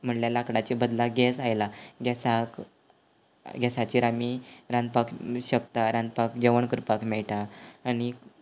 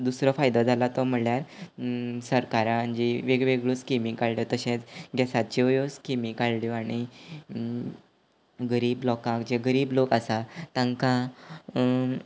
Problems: background sounds at intervals